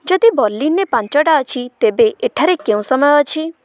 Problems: none marked